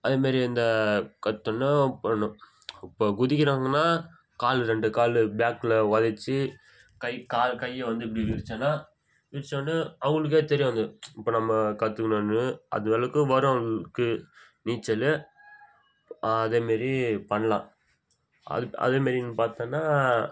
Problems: background sounds at intervals